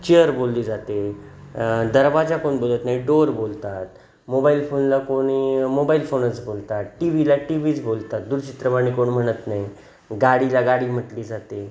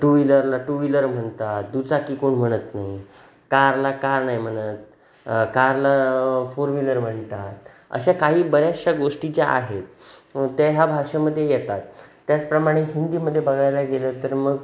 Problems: none marked